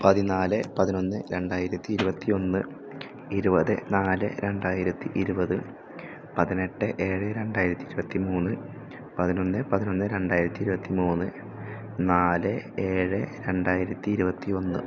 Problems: none marked